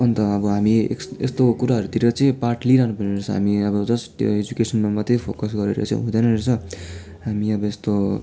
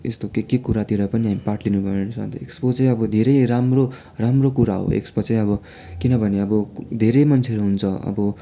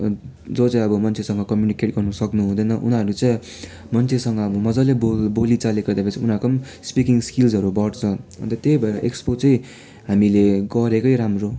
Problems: continuous background conversations